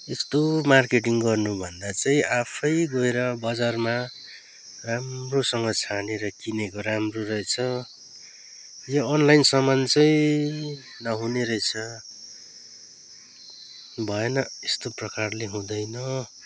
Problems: constant background noise